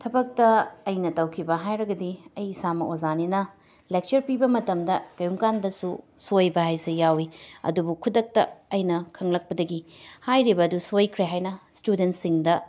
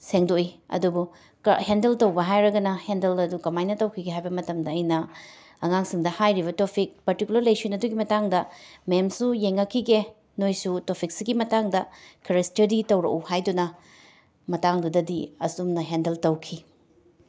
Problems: none marked